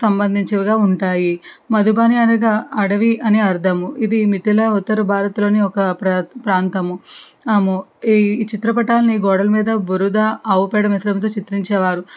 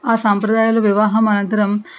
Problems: background sounds at intervals